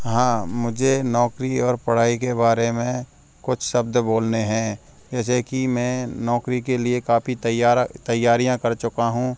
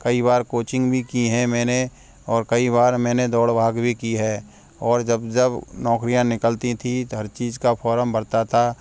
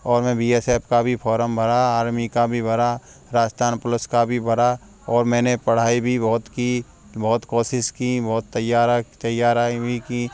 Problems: background sounds at intervals